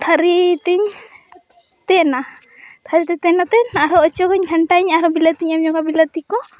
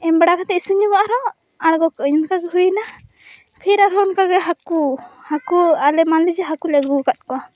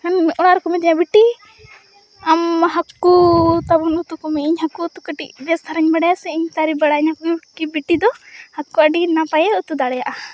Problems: none marked